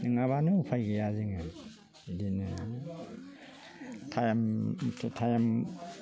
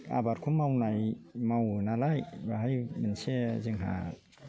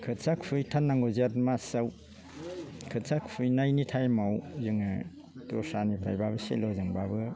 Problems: none marked